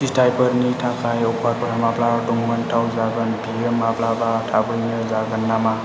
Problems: constant background noise, low volume